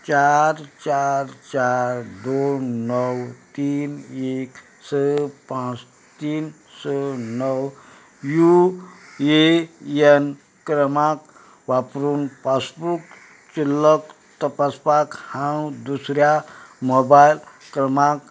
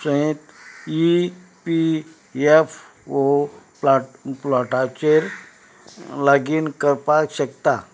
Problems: background sounds at intervals